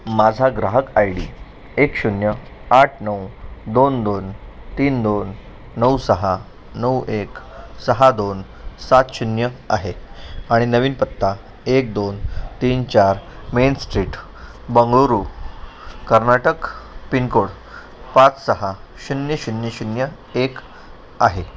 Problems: none marked